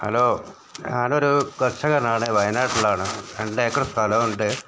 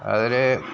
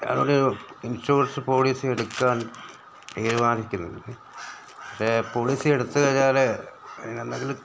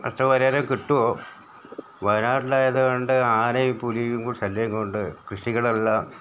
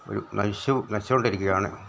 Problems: background sounds at intervals, background conversations at intervals